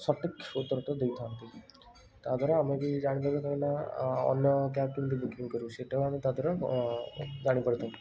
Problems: constant background noise